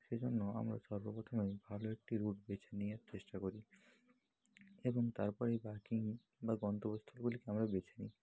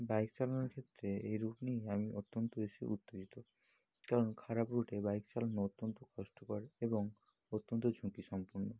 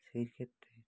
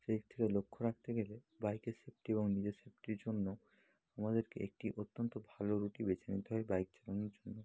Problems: none marked